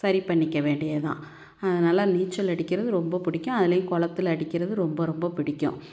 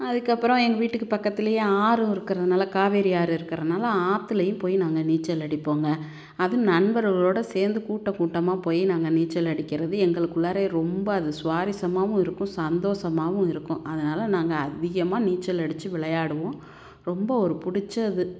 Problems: none marked